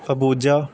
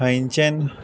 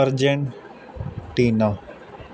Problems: constant background noise